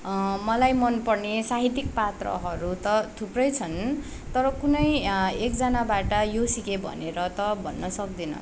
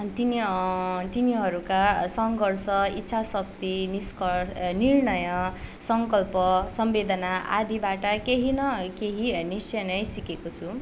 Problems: background sounds at intervals